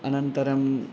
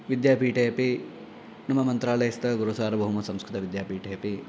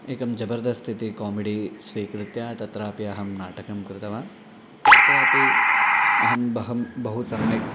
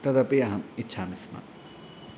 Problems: constant background noise